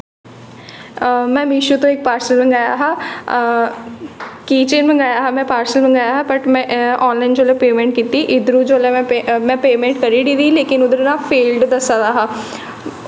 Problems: echo